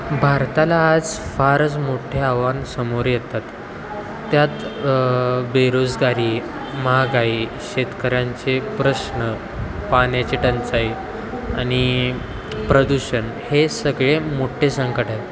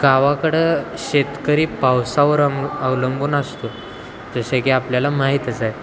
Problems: constant background noise